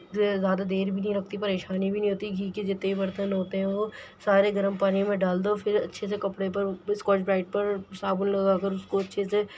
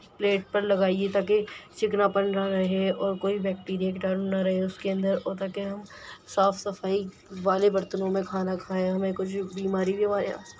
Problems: none marked